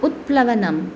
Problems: none marked